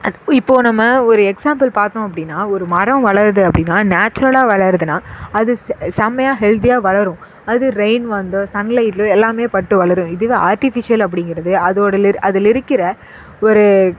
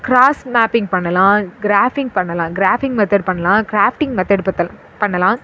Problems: echo